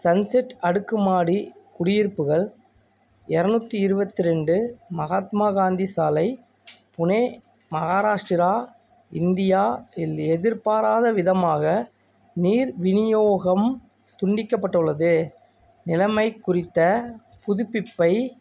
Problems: background sounds at intervals